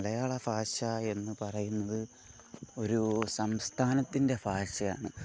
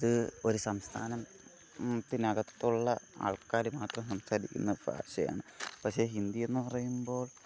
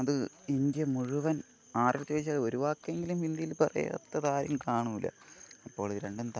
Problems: low volume